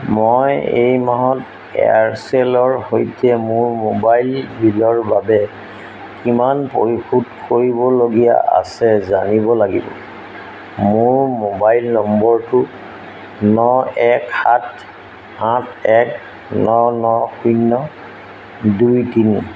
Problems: none marked